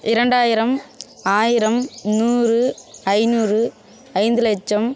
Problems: none marked